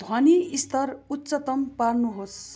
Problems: constant background noise